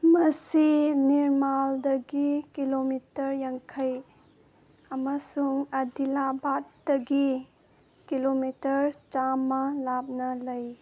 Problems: none marked